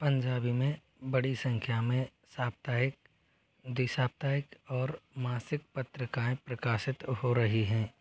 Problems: none marked